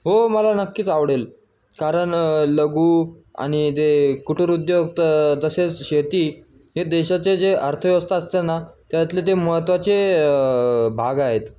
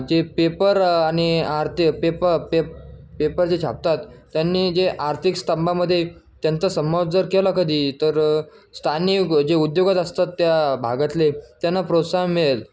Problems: background sounds at intervals